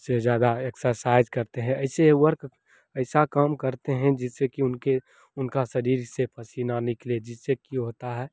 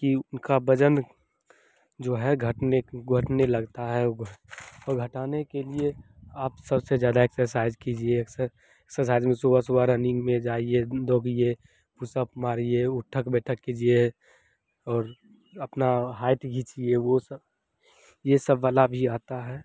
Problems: none marked